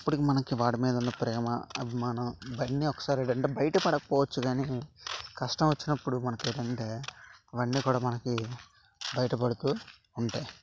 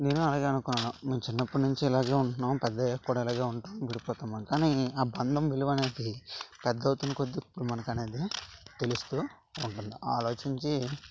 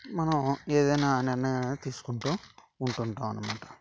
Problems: constant background noise